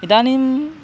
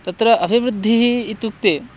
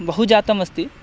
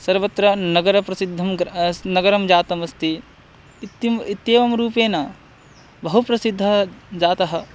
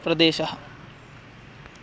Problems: constant background noise